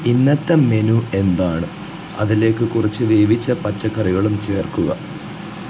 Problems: low volume